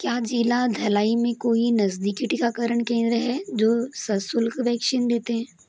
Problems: constant background noise, background conversations at intervals, echo